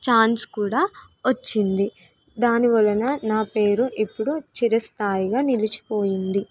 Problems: none marked